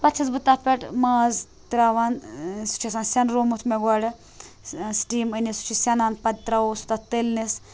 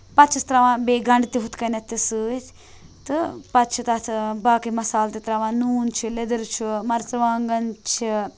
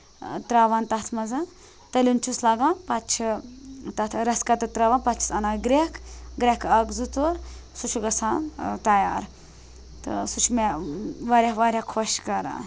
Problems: none marked